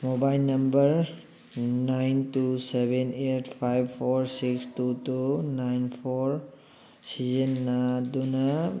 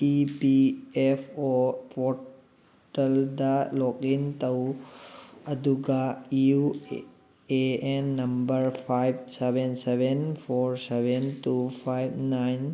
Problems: background sounds at intervals